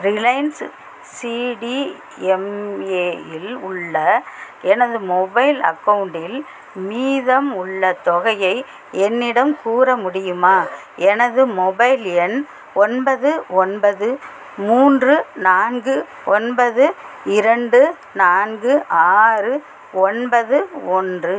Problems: constant background noise